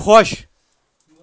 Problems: none marked